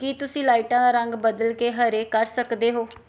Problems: background sounds at intervals